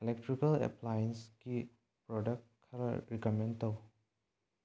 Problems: low volume